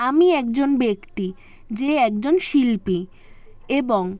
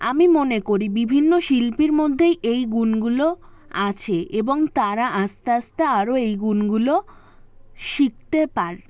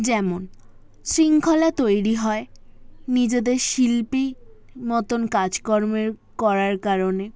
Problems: background sounds at intervals, continuous background conversations